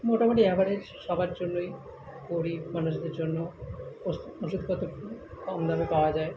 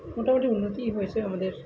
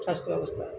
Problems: constant background noise, continuous background conversations